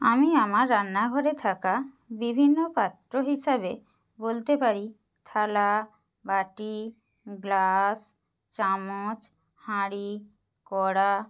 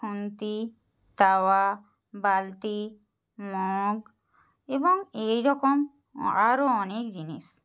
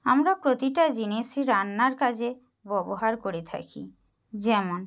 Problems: none marked